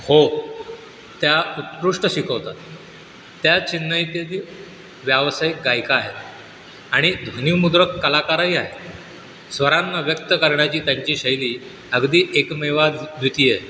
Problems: constant background noise